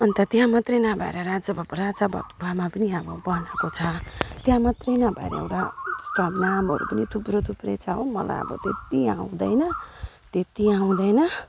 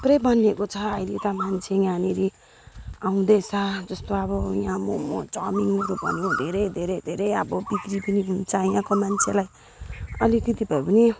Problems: background sounds at intervals